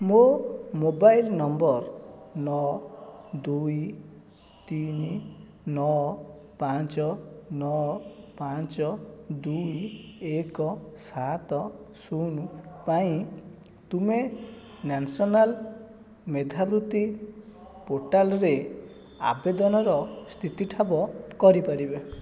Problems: background sounds at intervals